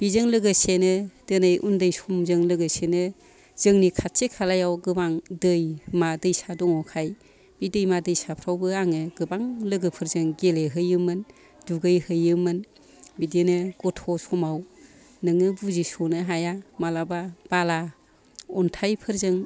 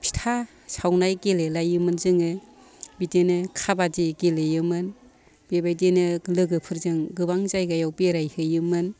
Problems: background sounds at intervals, continuous background conversations